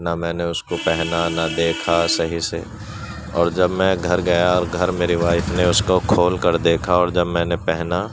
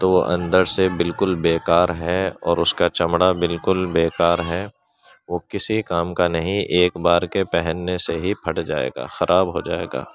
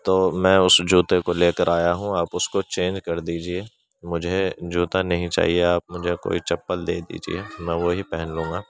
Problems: background sounds at intervals, background conversations at intervals